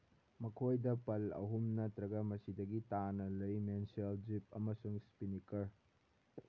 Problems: background sounds at intervals